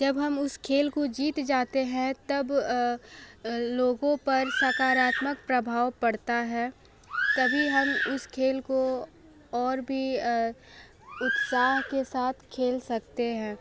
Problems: background sounds at intervals, low volume